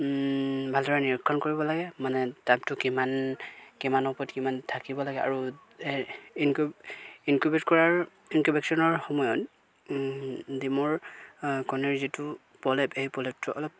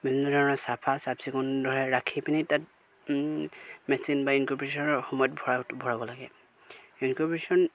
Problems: background sounds at intervals